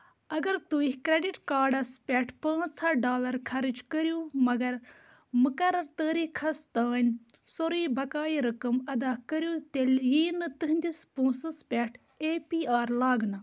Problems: none marked